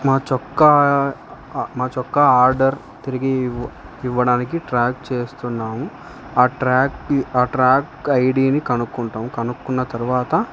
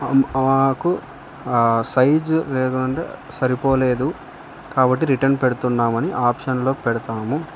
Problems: constant background noise